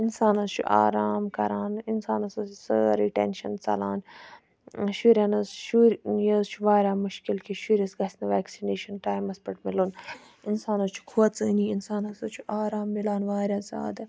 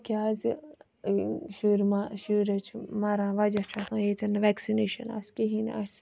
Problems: none marked